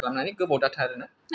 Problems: none marked